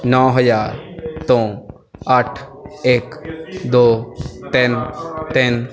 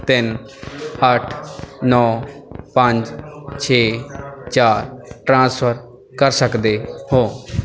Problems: background sounds at intervals